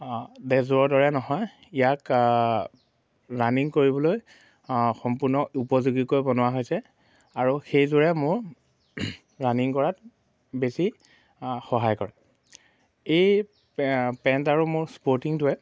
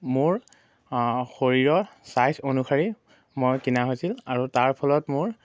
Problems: none marked